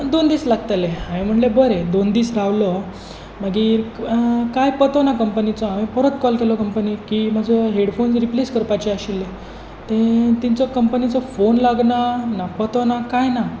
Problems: none marked